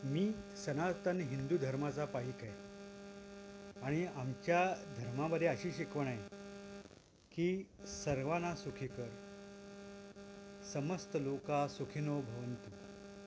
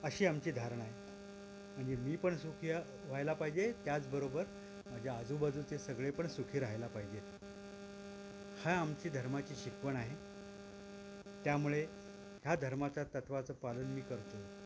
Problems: constant background noise